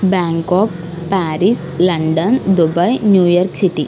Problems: constant background noise